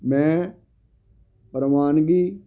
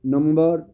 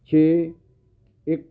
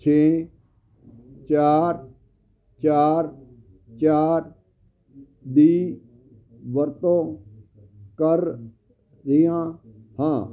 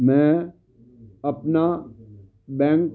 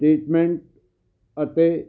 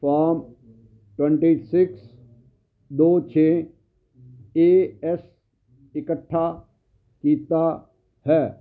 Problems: constant background noise